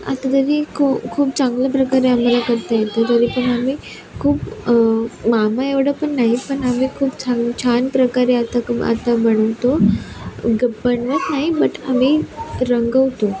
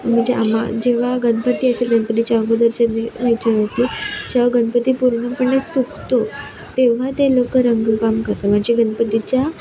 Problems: constant background noise, background conversations at intervals